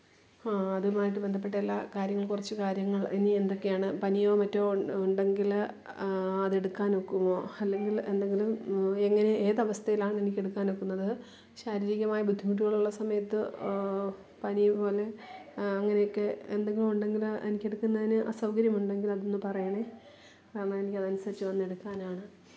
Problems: low volume